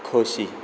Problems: constant background noise